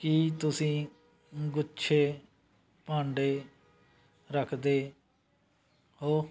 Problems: constant background noise